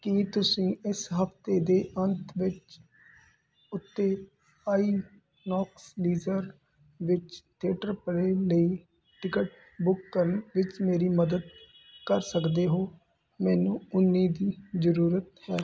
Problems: constant background noise